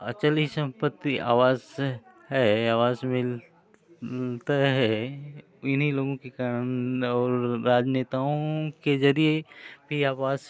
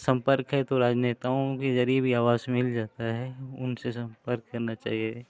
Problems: constant background noise